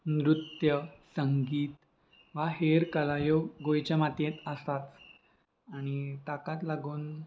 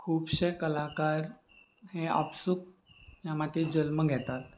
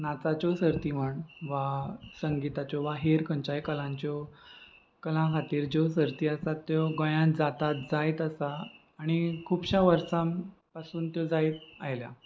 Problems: constant background noise